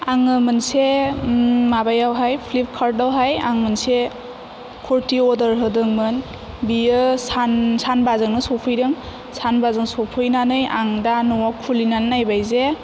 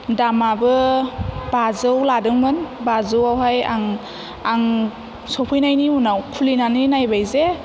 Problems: none marked